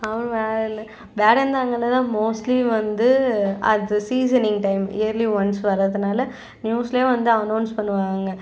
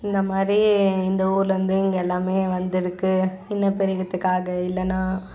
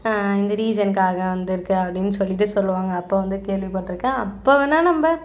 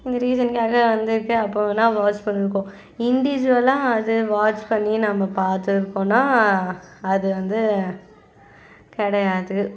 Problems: constant background noise, background conversations at intervals